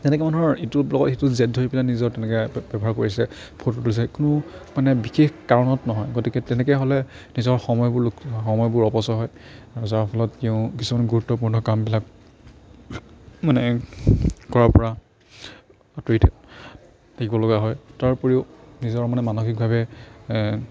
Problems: background conversations at intervals